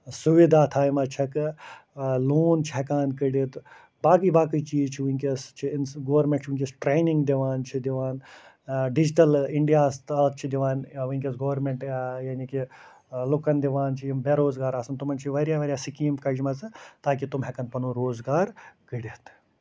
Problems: constant background noise